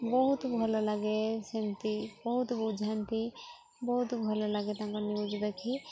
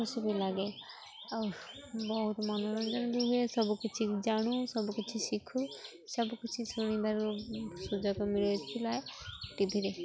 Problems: constant background noise, continuous background conversations